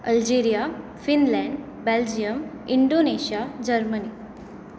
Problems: constant background noise